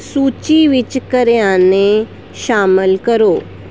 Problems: constant background noise